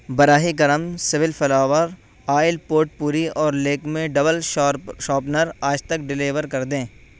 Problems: constant background noise